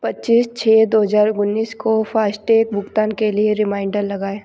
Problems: background sounds at intervals